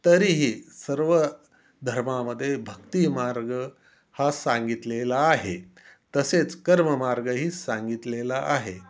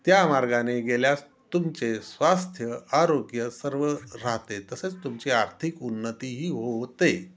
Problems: constant background noise